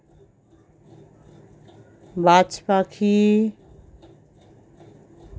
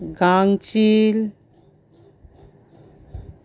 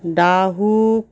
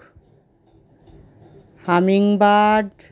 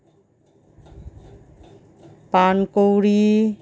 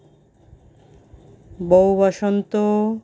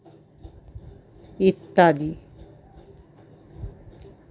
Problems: none marked